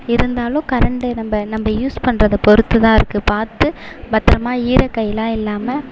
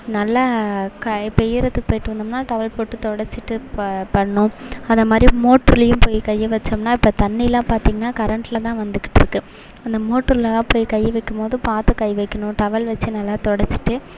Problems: continuous background conversations